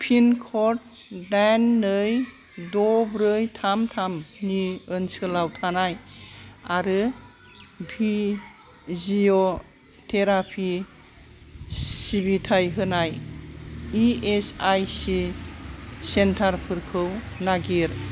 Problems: constant background noise